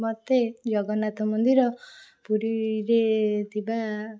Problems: none marked